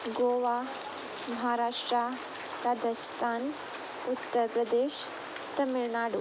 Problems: constant background noise